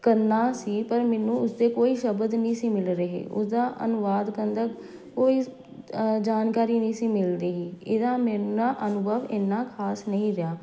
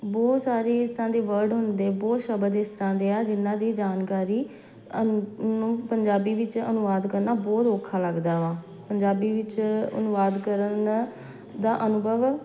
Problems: background sounds at intervals